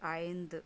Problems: none marked